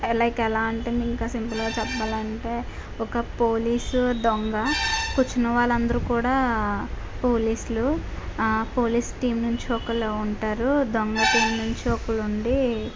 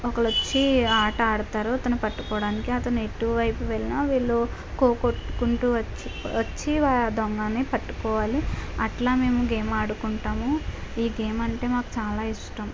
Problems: constant background noise